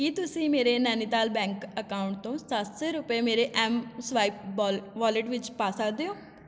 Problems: constant background noise